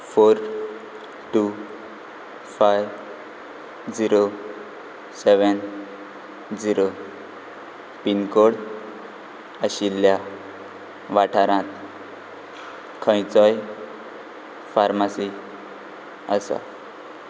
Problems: constant background noise